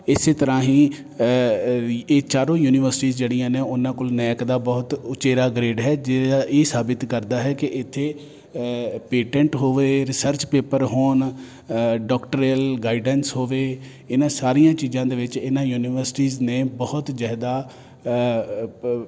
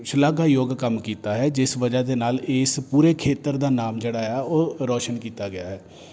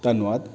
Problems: none marked